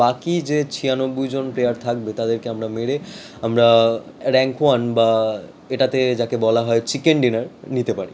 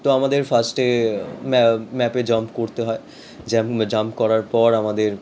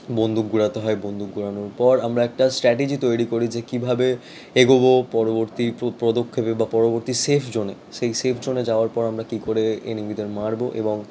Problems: background sounds at intervals